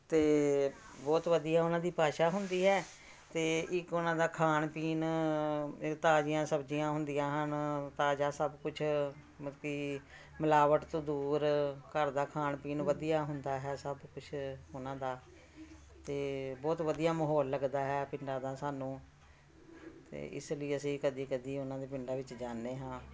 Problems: continuous background conversations